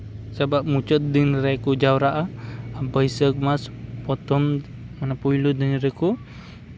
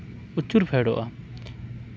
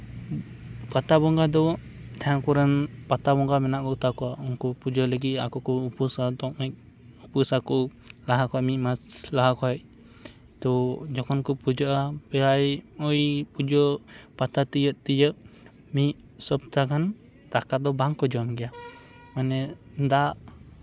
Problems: none marked